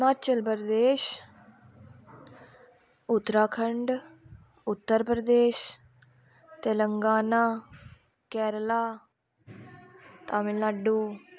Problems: constant background noise